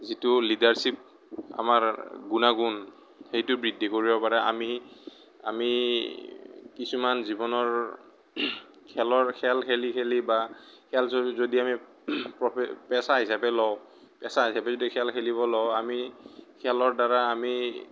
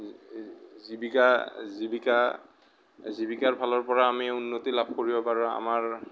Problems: none marked